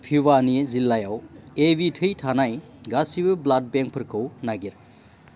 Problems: constant background noise